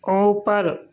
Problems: constant background noise